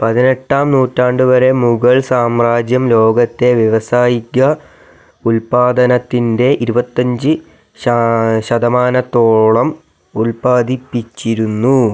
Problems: none marked